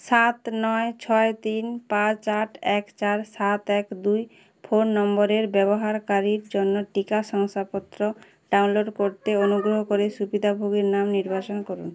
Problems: none marked